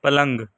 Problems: none marked